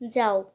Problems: constant background noise